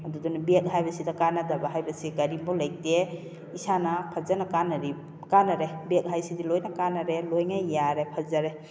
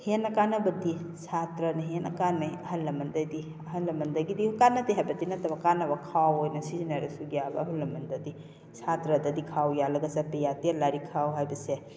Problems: constant background noise